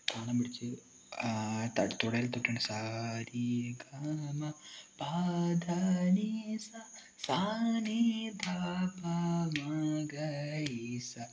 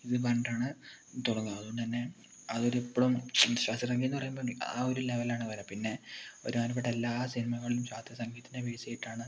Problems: low volume